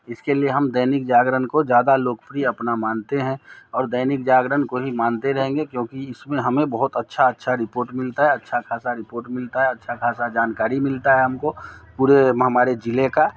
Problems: none marked